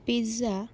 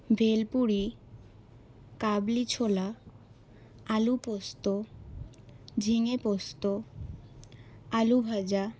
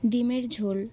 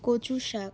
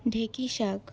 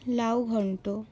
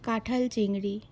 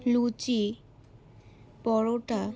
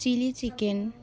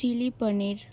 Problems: background sounds at intervals, background conversations at intervals